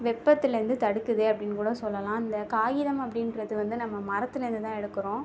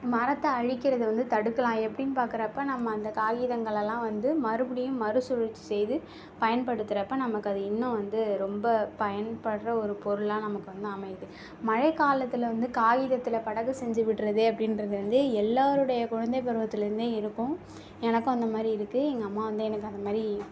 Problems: none marked